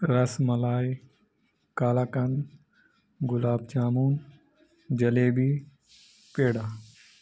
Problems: none marked